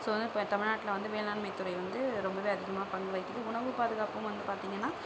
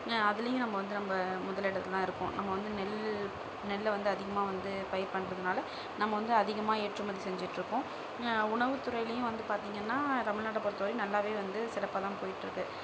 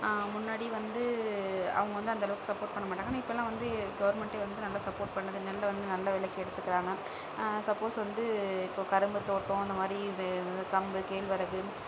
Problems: constant background noise